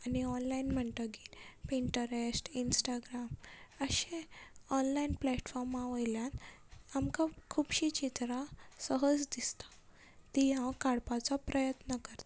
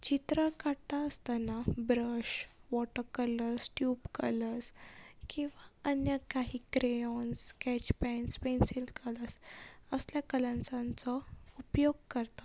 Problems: constant background noise